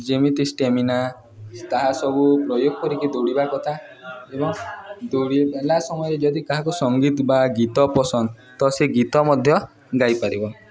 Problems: continuous background conversations